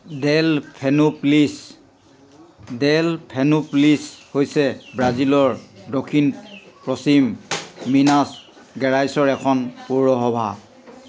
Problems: constant background noise